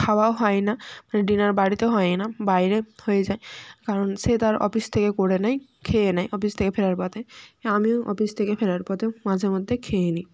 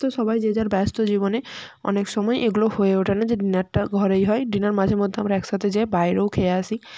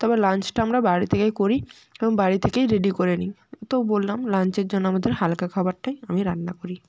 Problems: background sounds at intervals, background conversations at intervals